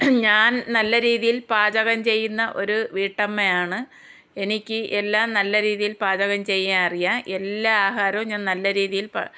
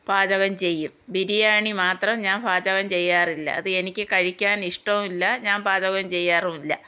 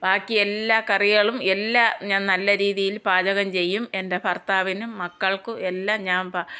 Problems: none marked